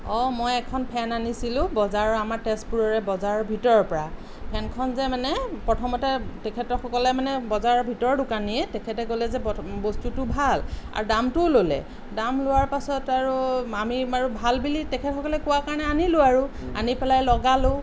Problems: none marked